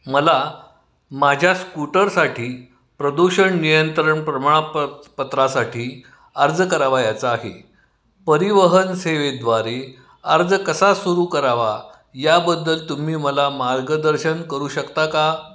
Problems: none marked